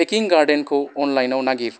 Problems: background sounds at intervals